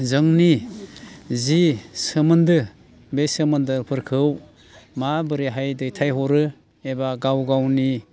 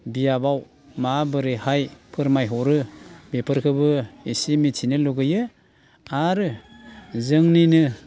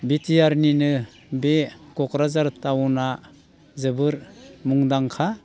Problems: constant background noise